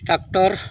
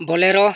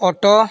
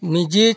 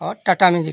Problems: background sounds at intervals, continuous background conversations